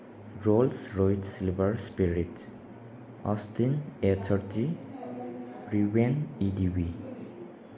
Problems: background sounds at intervals